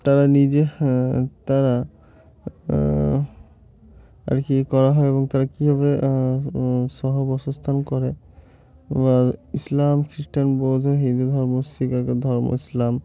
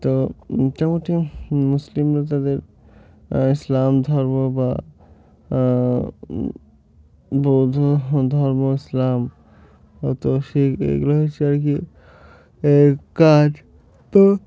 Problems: constant background noise, continuous background conversations